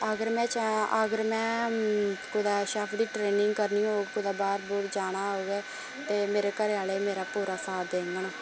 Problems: constant background noise